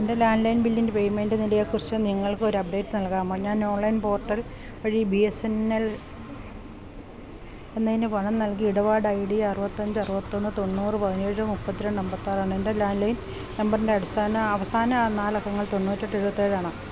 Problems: constant background noise